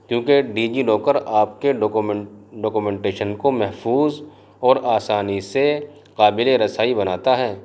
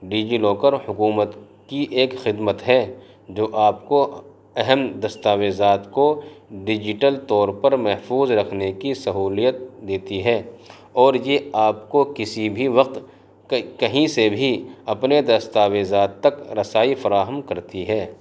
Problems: constant background noise